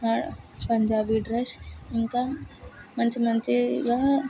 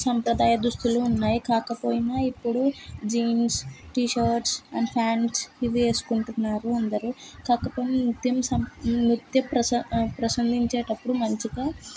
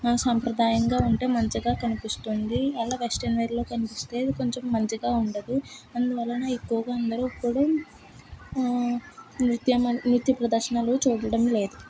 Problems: constant background noise